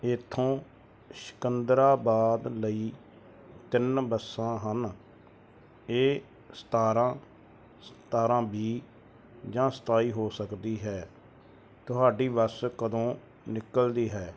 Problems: none marked